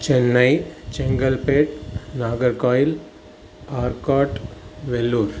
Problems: constant background noise